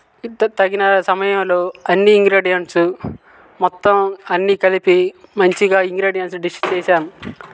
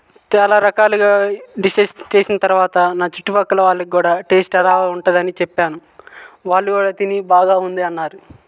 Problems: background sounds at intervals